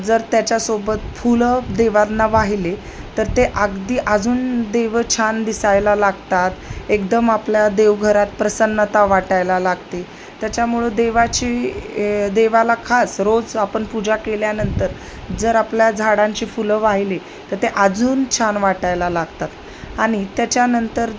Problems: constant background noise